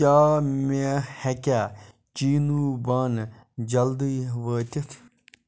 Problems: none marked